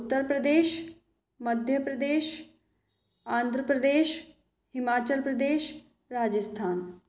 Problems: echo